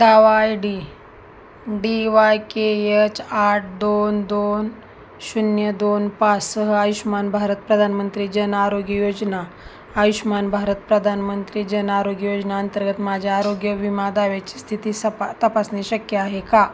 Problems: constant background noise